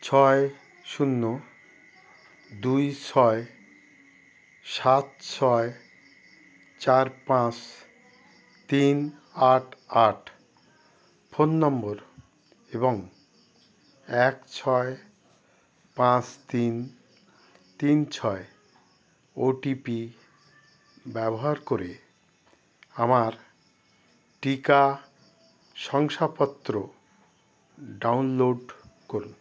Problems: none marked